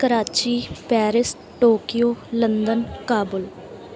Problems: background conversations at intervals